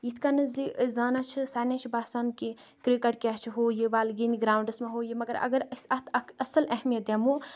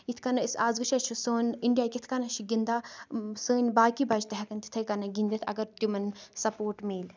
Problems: continuous background conversations